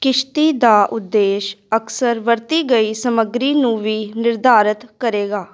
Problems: constant background noise